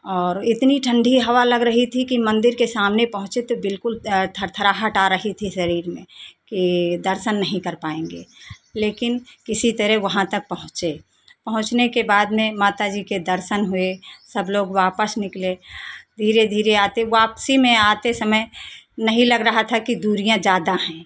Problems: none marked